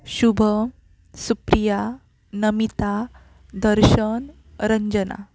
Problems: constant background noise